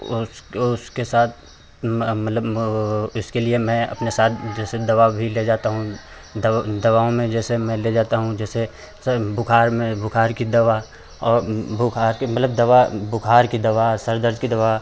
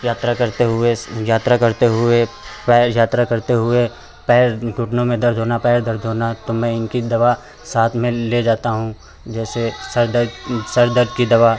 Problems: none marked